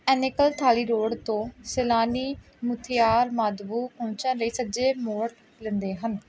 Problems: background sounds at intervals